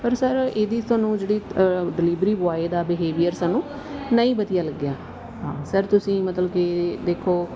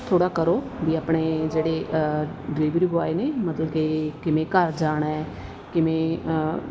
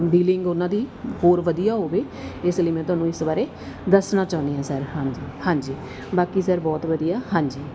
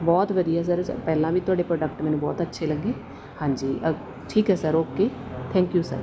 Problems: constant background noise